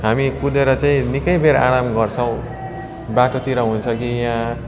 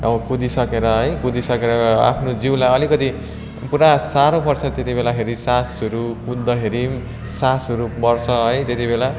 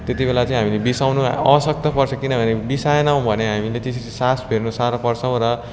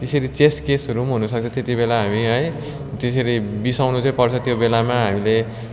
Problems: continuous background conversations